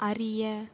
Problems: none marked